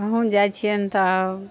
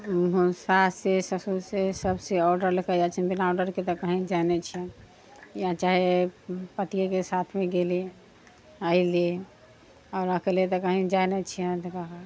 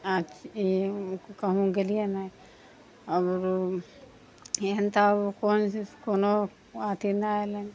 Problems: background sounds at intervals